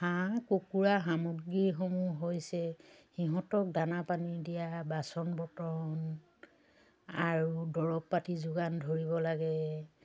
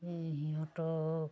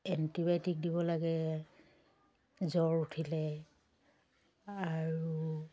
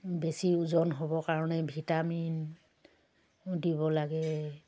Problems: constant background noise